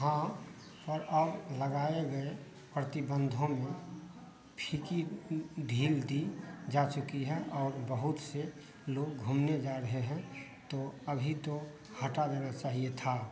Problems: constant background noise